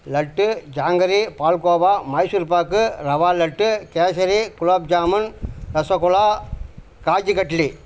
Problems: constant background noise